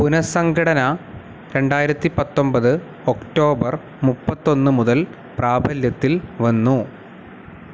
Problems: constant background noise